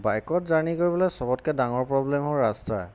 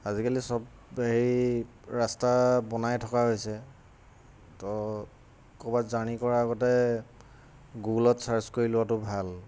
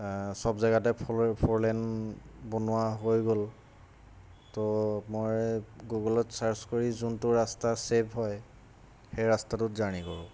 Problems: constant background noise